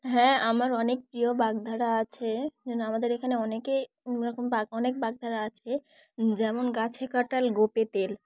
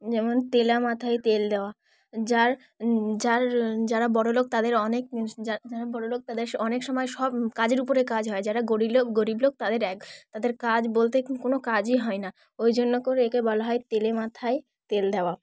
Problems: none marked